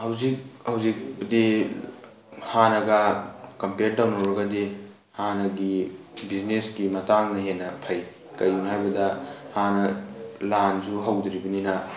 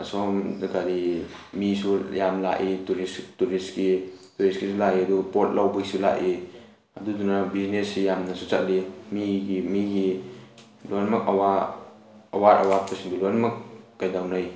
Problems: background sounds at intervals